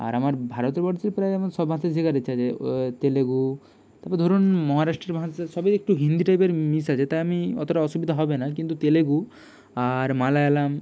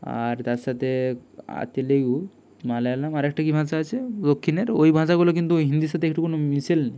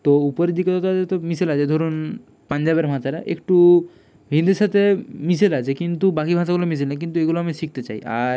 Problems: background sounds at intervals